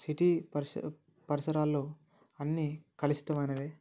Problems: none marked